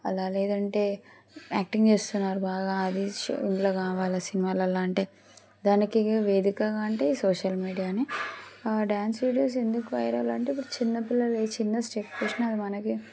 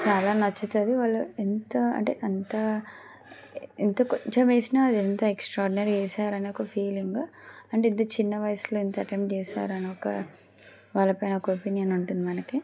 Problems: constant background noise